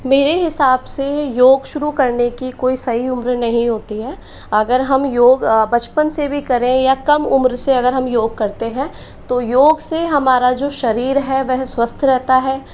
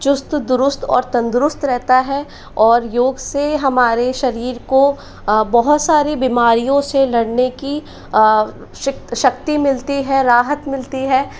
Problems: constant background noise